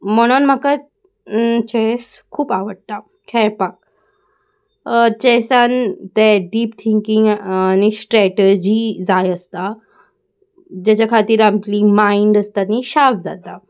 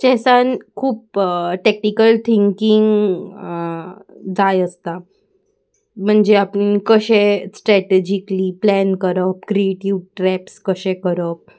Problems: constant background noise